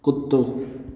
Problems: background sounds at intervals, echo